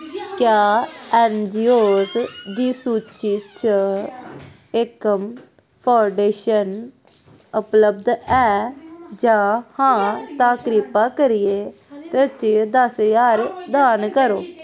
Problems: constant background noise